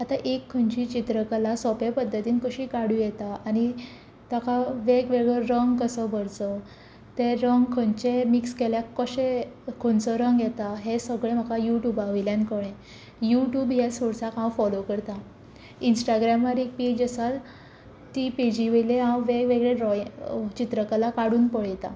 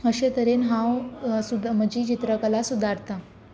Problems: constant background noise